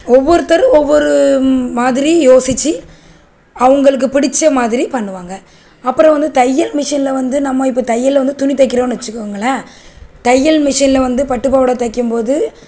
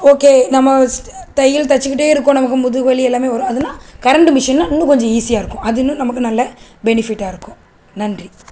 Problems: constant background noise